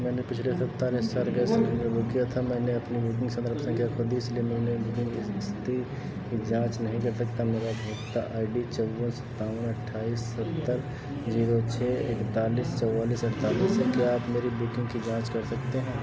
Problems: none marked